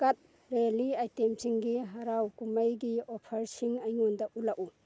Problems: none marked